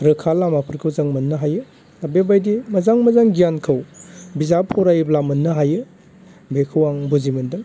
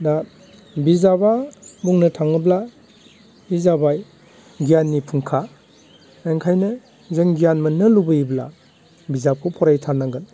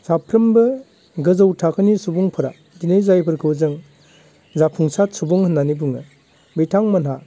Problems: constant background noise